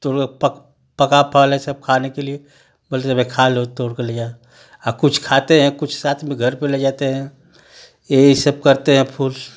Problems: constant background noise